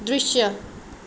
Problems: background sounds at intervals